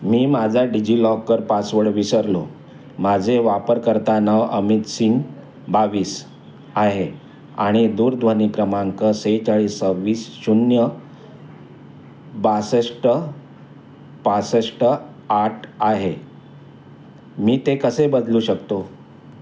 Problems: none marked